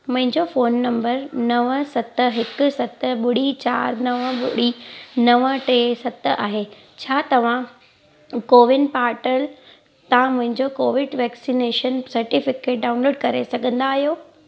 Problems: constant background noise